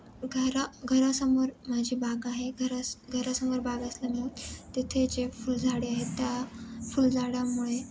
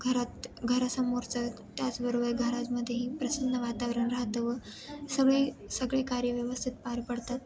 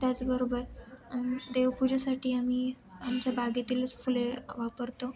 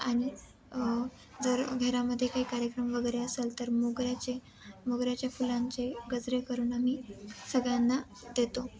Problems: none marked